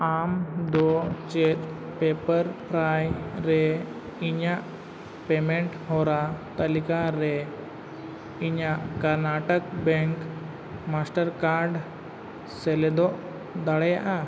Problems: constant background noise